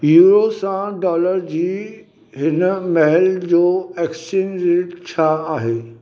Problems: none marked